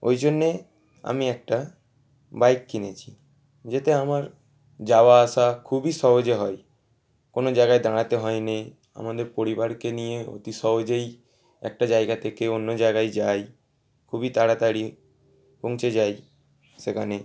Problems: background sounds at intervals, background conversations at intervals